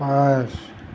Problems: none marked